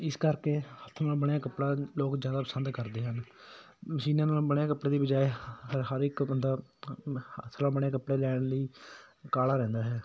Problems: background sounds at intervals